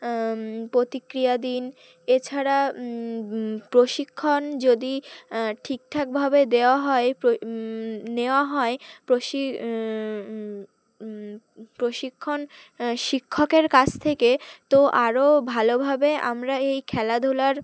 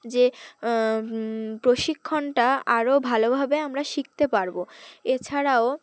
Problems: none marked